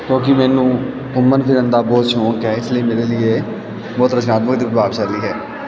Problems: none marked